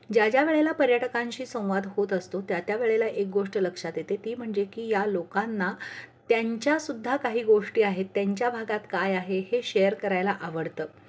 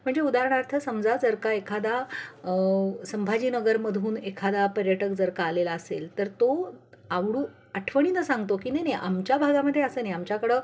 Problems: none marked